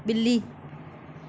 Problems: constant background noise